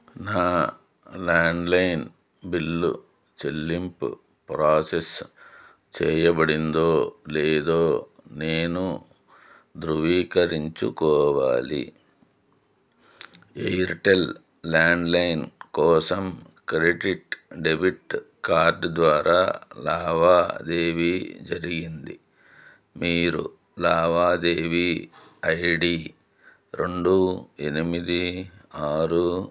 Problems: none marked